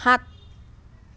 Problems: none marked